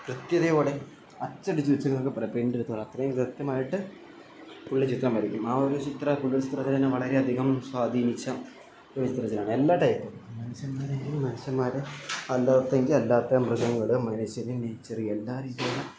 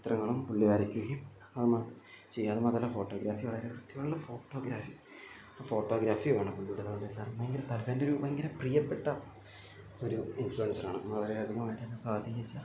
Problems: low volume